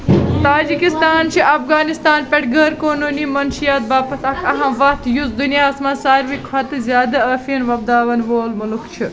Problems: constant background noise